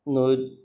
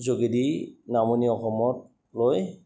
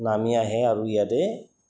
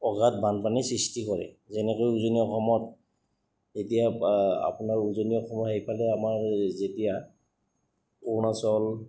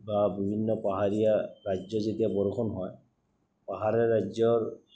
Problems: none marked